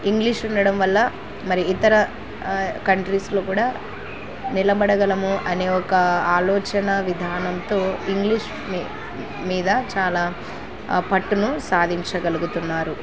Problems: constant background noise